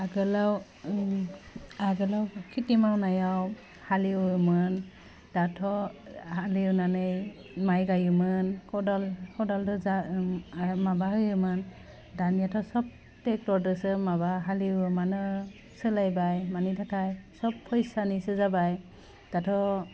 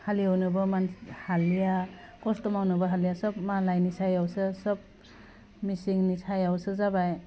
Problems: low volume